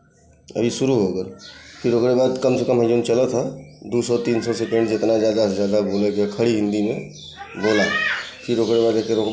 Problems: constant background noise, continuous background conversations